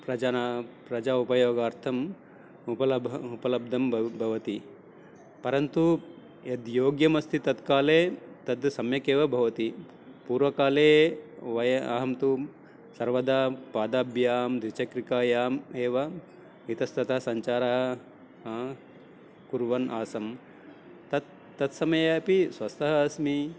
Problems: none marked